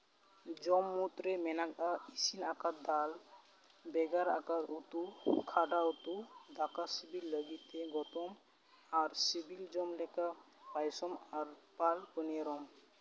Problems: background sounds at intervals